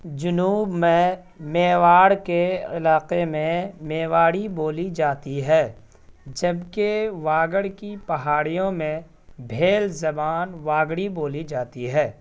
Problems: none marked